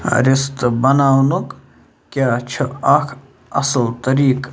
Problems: constant background noise